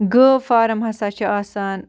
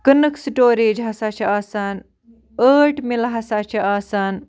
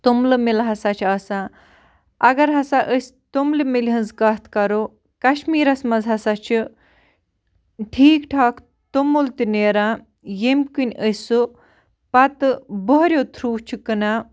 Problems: background sounds at intervals